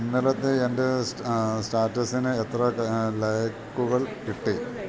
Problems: none marked